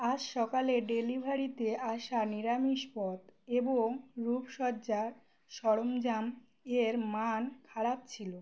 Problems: none marked